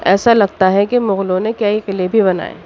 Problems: background sounds at intervals